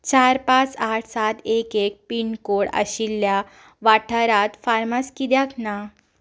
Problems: background sounds at intervals